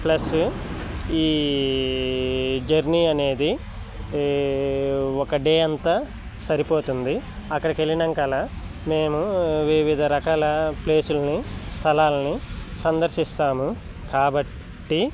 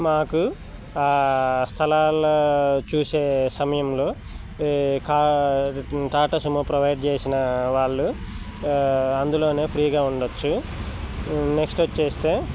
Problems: constant background noise